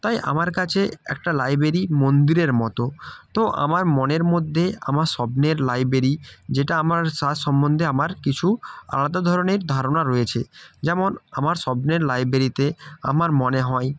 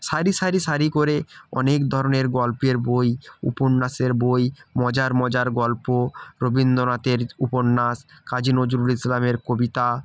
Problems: background sounds at intervals